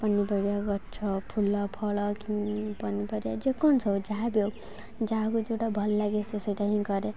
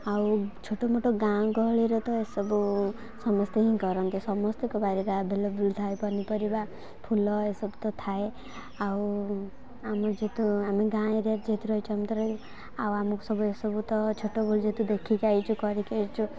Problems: none marked